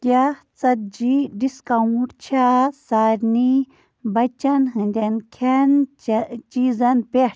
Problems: constant background noise